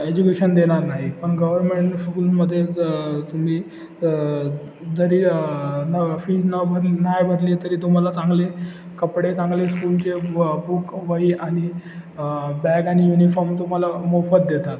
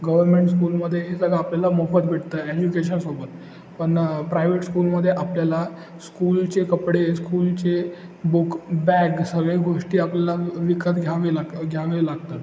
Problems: constant background noise, background conversations at intervals